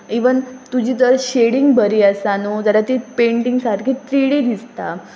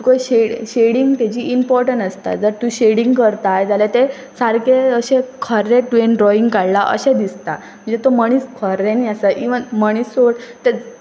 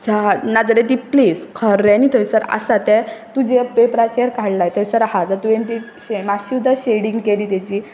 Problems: background sounds at intervals